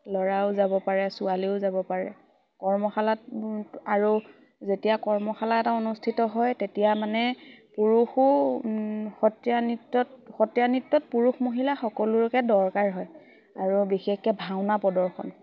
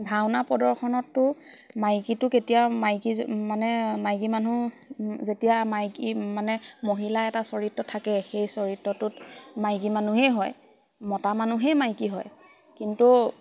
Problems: constant background noise, background conversations at intervals